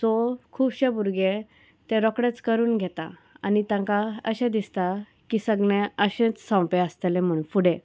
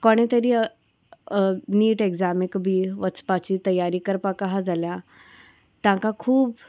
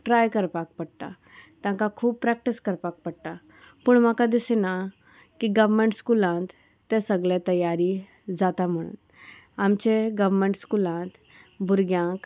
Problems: constant background noise